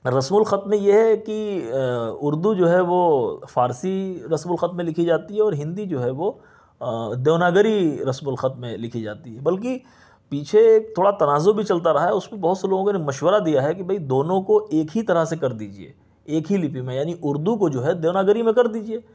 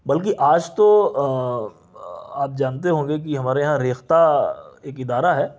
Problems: none marked